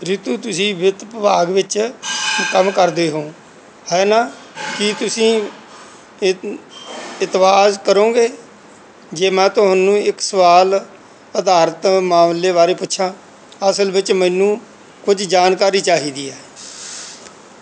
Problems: background sounds at intervals